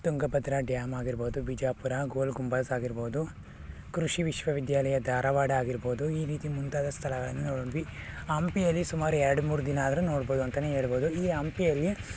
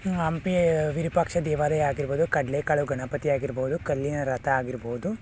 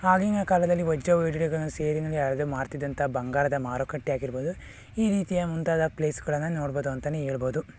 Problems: none marked